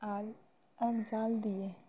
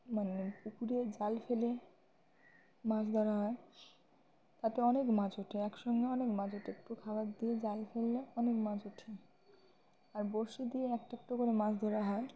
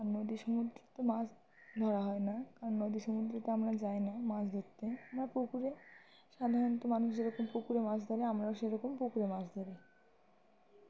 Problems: constant background noise